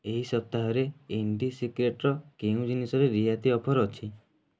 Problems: none marked